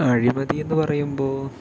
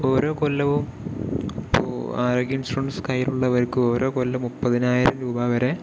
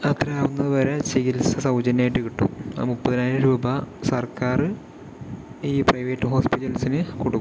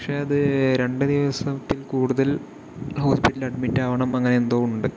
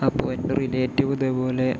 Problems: background sounds at intervals, low volume